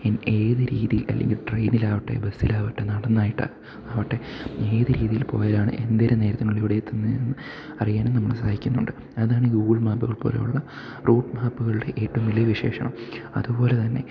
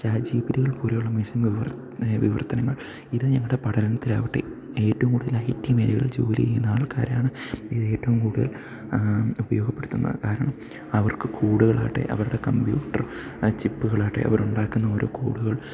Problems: background sounds at intervals, low volume